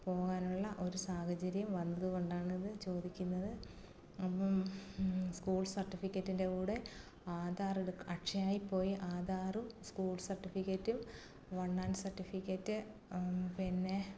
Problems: background conversations at intervals, low volume